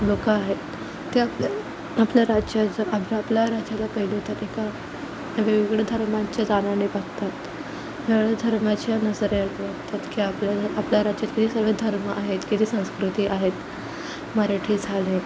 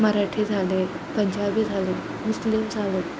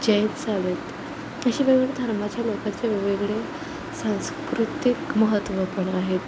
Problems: constant background noise, low volume